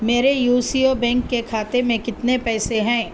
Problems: constant background noise